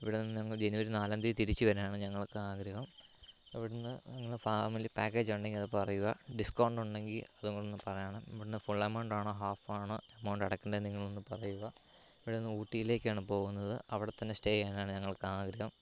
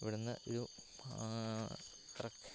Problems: low volume